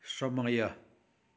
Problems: none marked